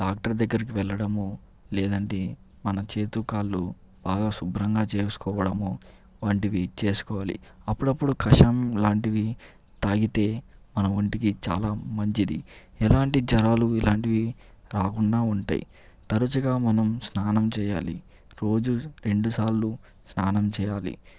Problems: none marked